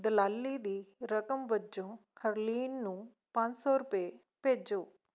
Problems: none marked